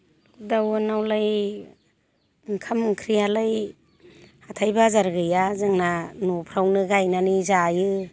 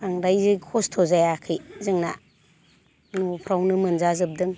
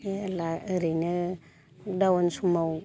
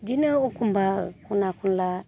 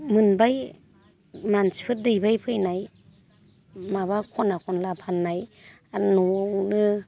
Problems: none marked